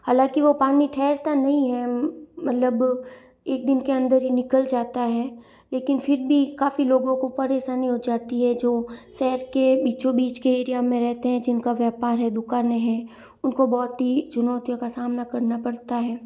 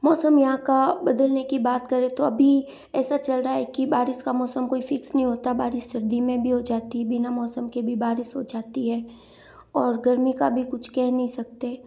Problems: none marked